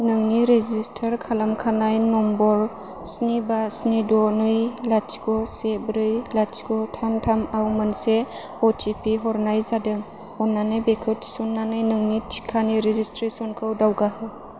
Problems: none marked